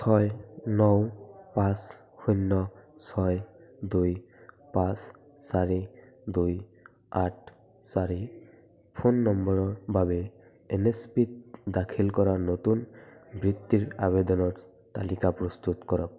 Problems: continuous background conversations